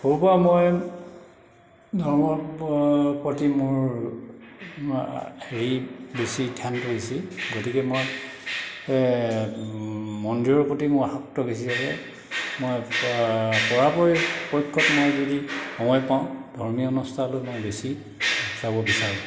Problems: background sounds at intervals